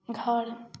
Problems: background sounds at intervals, echo